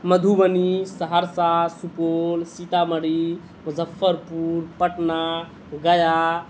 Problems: constant background noise